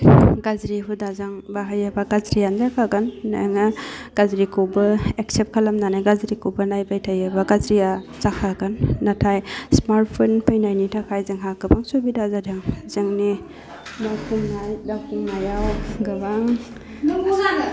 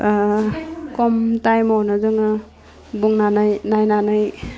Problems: low volume